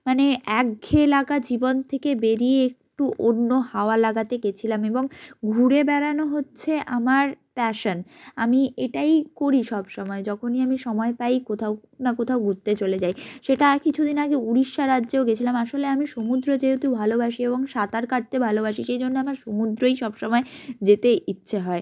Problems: none marked